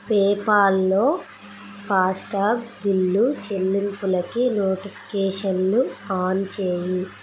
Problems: constant background noise